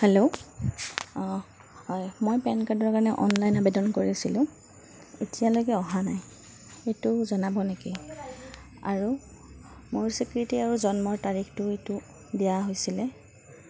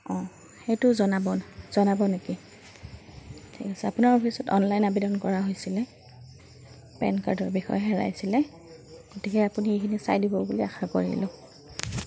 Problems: constant background noise, continuous background conversations